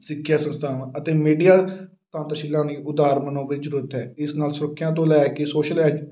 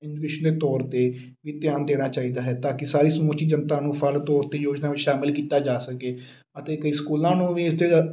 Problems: background sounds at intervals